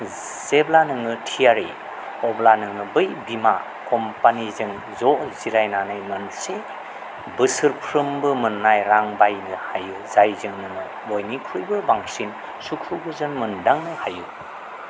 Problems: constant background noise